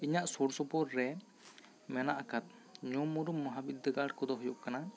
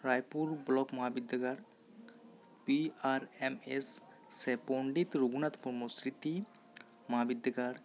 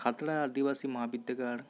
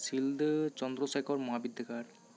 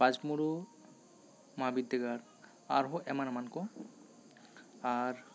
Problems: constant background noise, background conversations at intervals